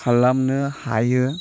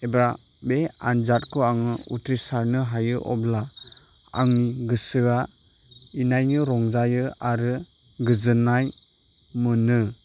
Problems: constant background noise